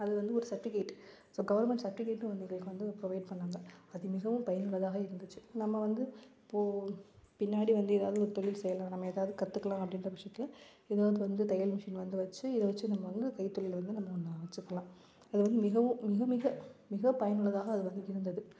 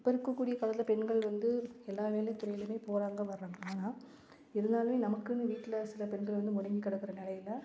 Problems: none marked